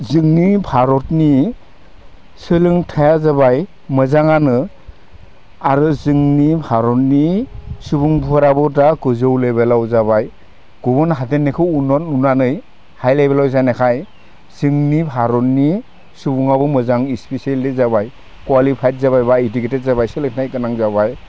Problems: none marked